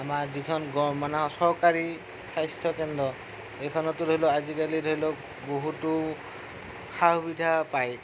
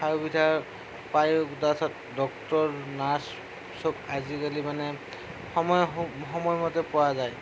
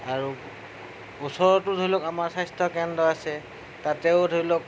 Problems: constant background noise, low volume